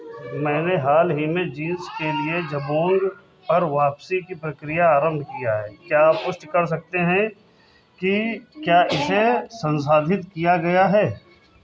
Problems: constant background noise, continuous background conversations